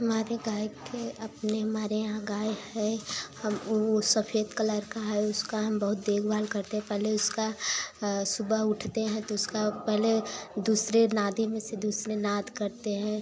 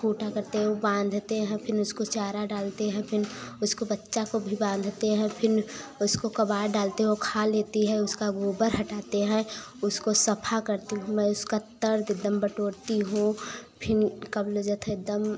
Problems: constant background noise